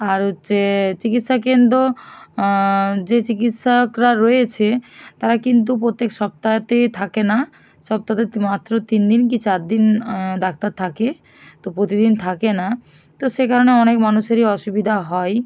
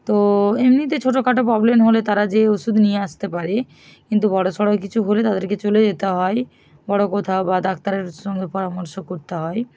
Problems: constant background noise